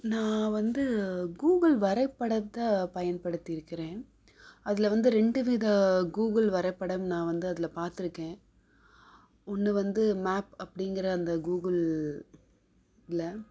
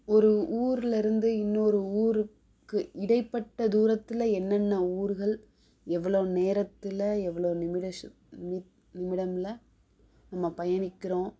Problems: none marked